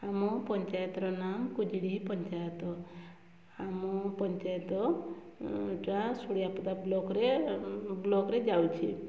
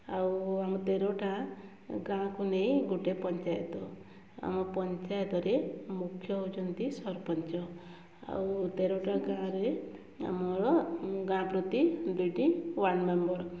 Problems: low volume